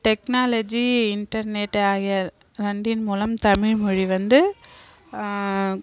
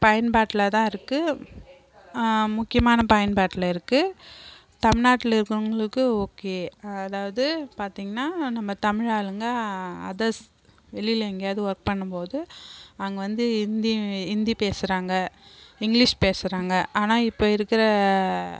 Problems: background conversations at intervals